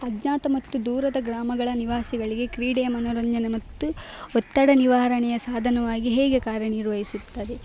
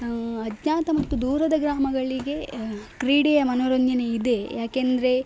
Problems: background sounds at intervals